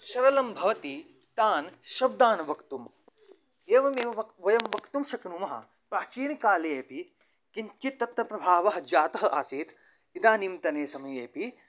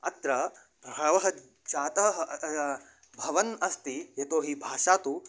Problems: none marked